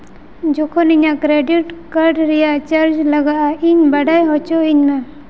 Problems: background sounds at intervals, echo